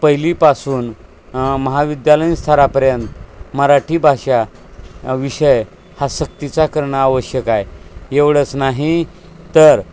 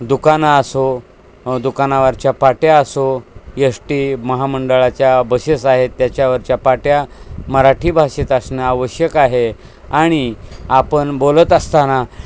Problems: constant background noise